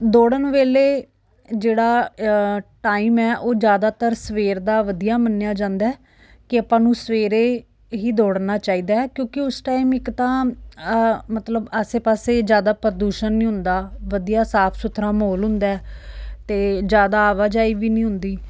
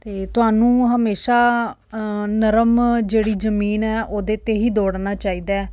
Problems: none marked